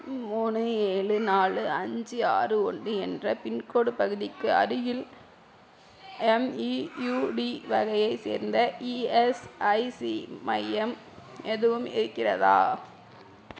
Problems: background conversations at intervals